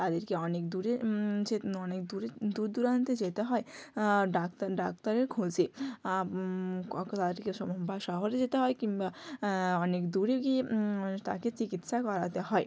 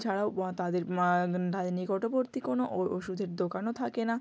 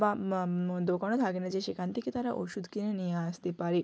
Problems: none marked